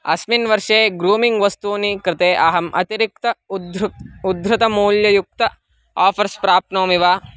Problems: constant background noise